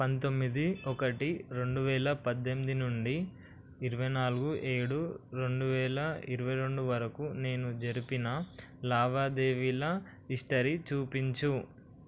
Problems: constant background noise